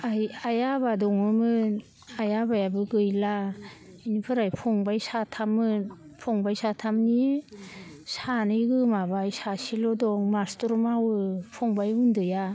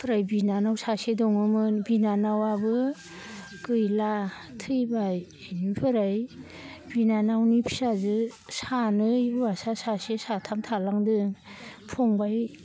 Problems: none marked